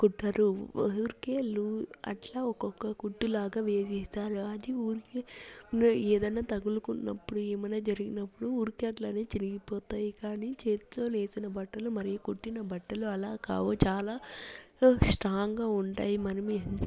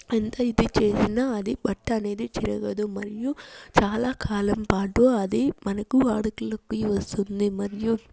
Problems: low volume